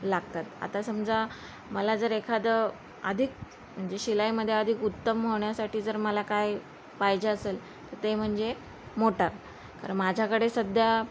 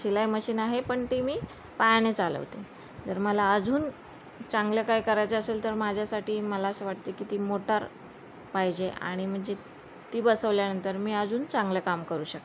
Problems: none marked